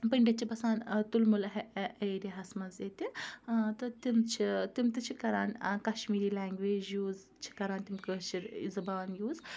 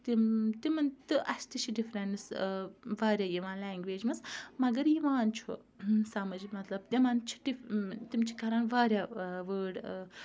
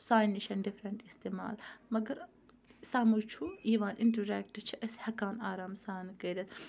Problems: background conversations at intervals